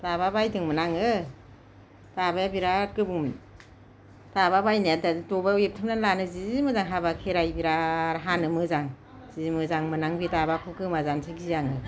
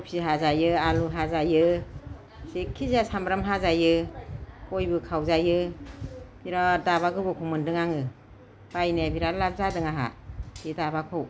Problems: none marked